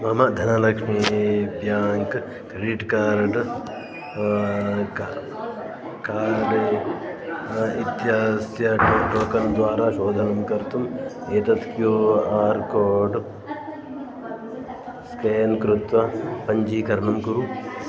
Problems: continuous background conversations